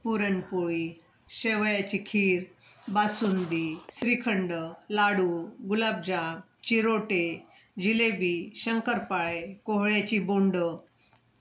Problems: constant background noise